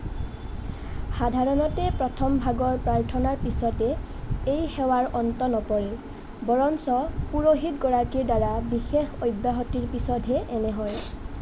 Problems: constant background noise